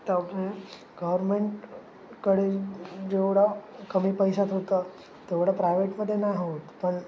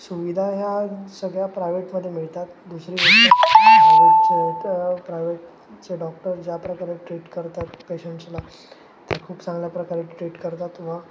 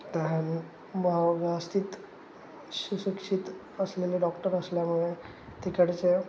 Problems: constant background noise